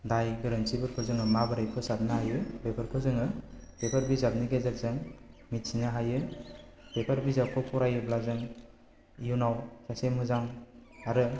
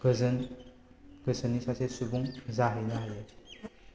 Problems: low volume